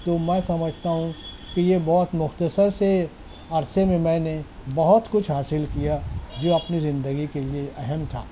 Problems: constant background noise